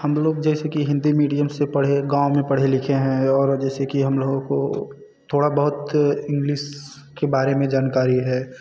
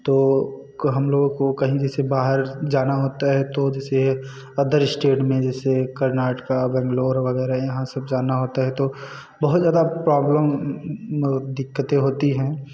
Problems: none marked